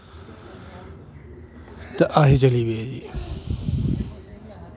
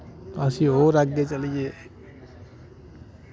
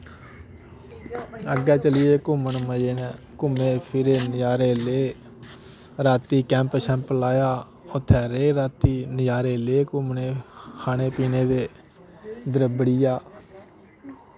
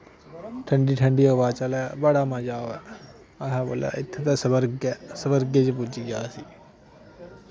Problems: constant background noise